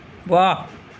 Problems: none marked